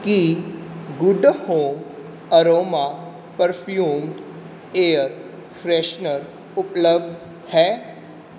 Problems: background sounds at intervals